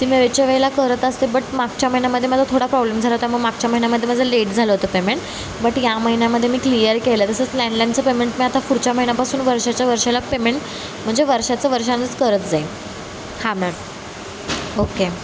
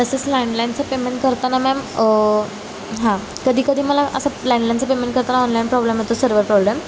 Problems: constant background noise